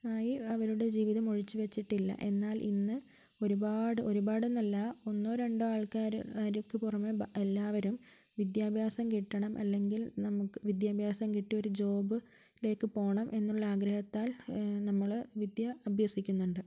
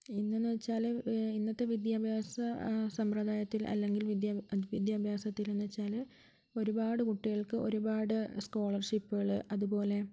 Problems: low volume